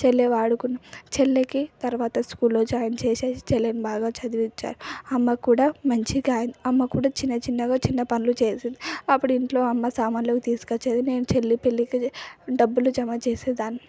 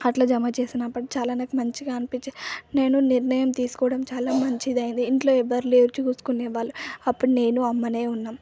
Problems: none marked